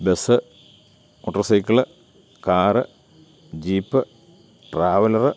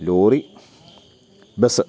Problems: none marked